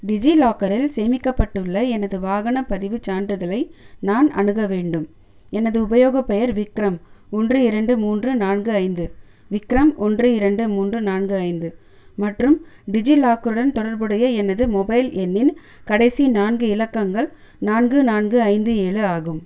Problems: none marked